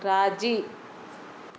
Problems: none marked